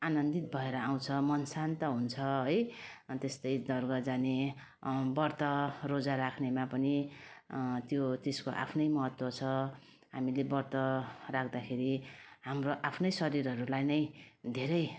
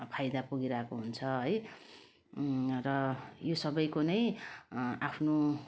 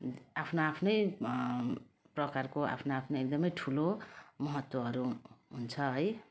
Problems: none marked